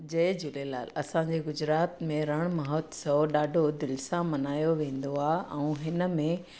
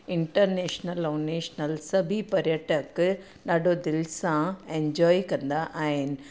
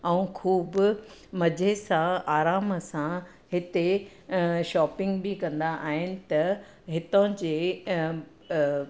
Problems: none marked